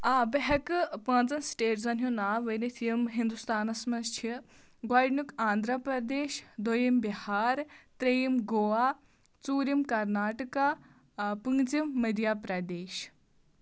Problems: constant background noise